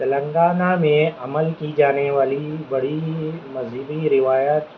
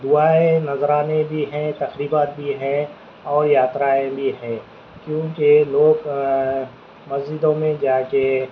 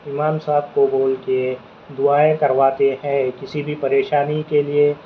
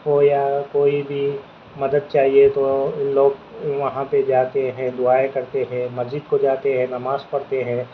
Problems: constant background noise, low volume